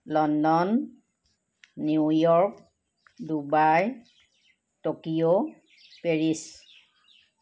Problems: constant background noise